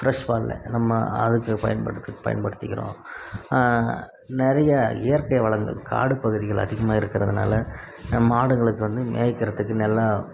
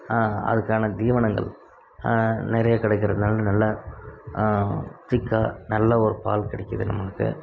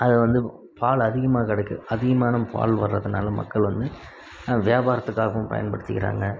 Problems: background sounds at intervals